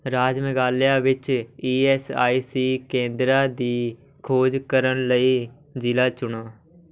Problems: continuous background conversations